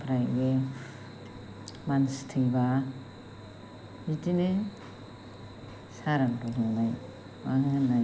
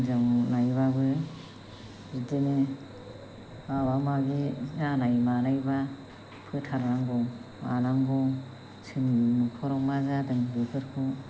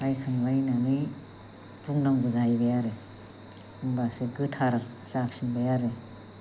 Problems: low volume